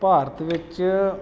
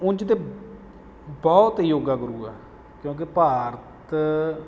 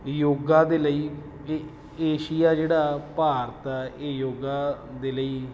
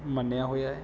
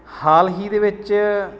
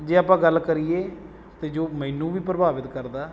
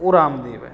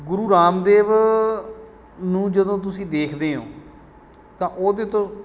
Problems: background sounds at intervals